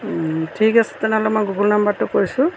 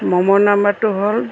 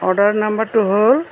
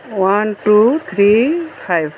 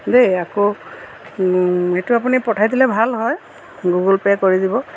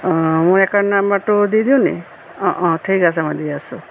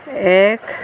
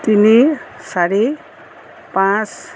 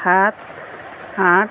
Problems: none marked